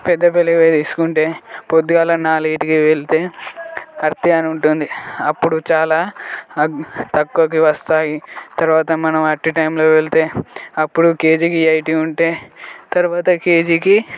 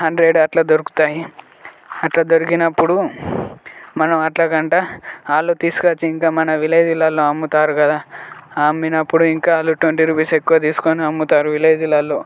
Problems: background sounds at intervals, continuous background conversations